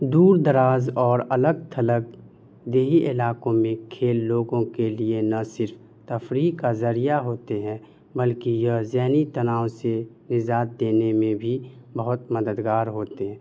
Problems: none marked